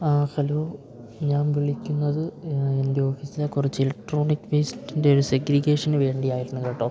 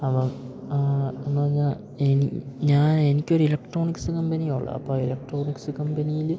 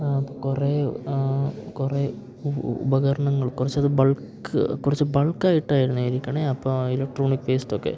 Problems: background sounds at intervals